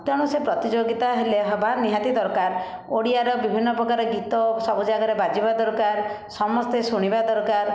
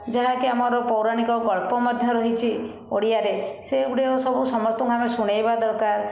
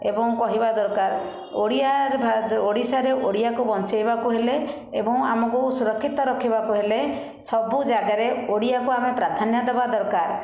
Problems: constant background noise, continuous background conversations